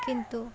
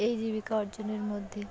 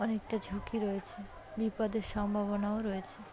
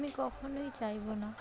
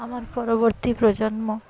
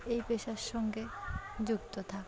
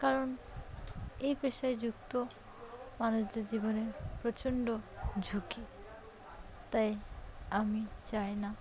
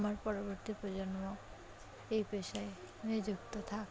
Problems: background conversations at intervals